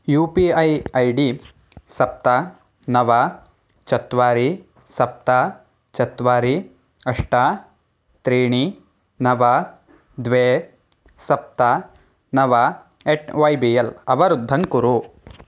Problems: background sounds at intervals